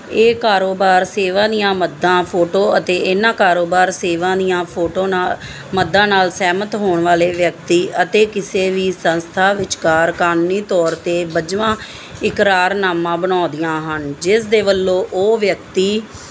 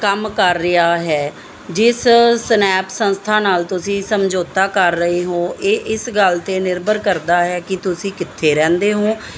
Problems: background sounds at intervals